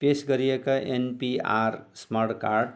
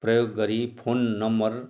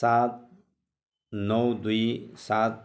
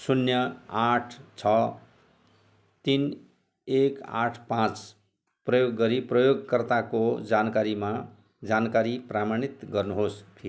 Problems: none marked